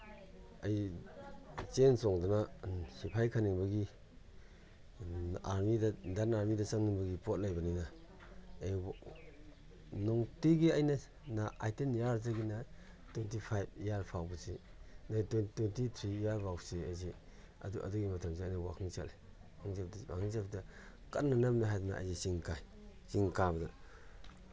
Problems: background sounds at intervals